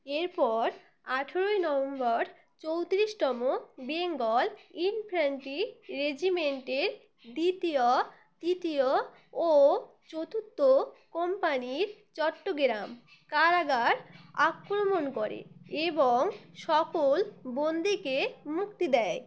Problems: constant background noise